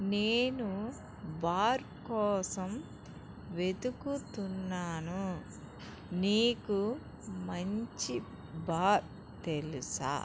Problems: background sounds at intervals